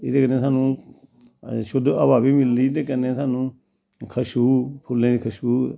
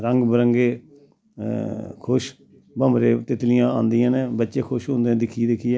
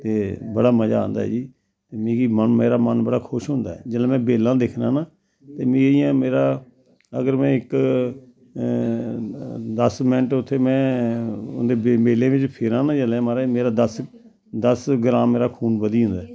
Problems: constant background noise, background conversations at intervals